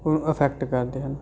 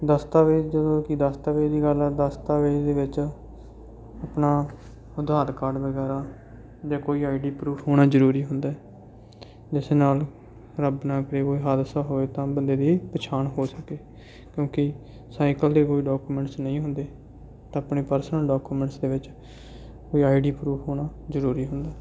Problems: none marked